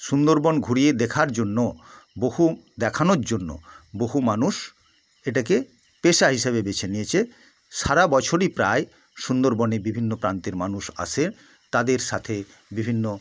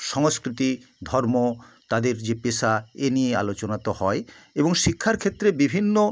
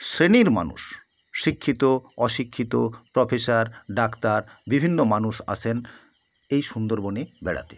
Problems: constant background noise